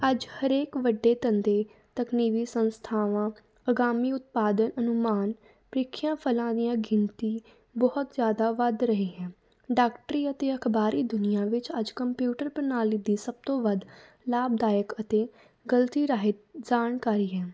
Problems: none marked